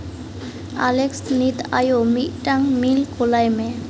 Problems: constant background noise